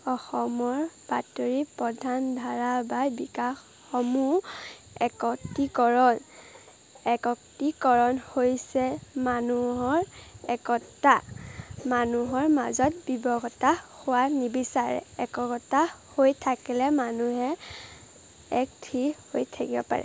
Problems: constant background noise